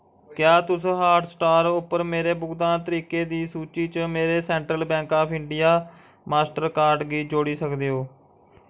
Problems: none marked